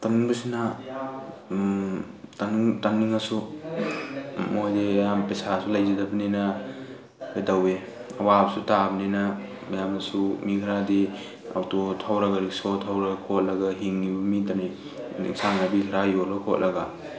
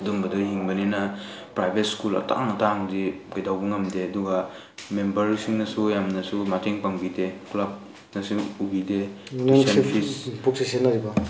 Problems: background sounds at intervals, background conversations at intervals